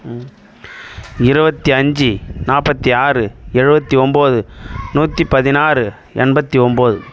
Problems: background sounds at intervals